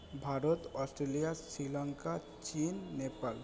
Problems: none marked